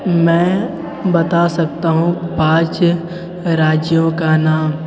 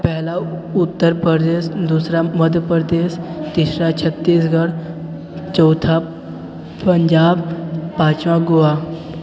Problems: continuous background conversations